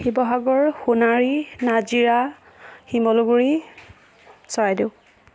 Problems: none marked